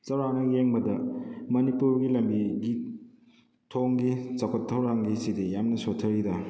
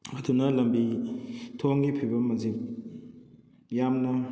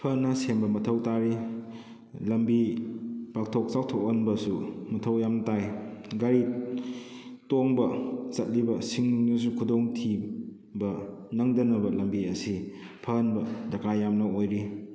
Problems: echo